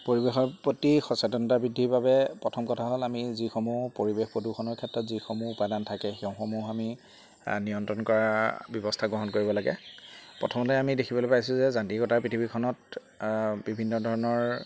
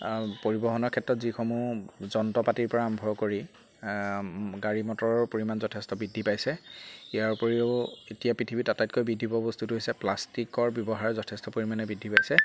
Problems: constant background noise, background conversations at intervals